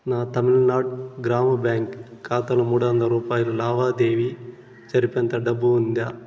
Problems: constant background noise